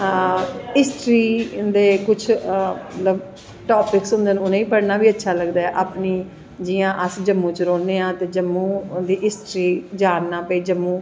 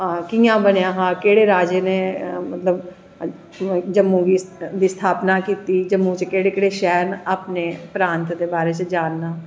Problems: echo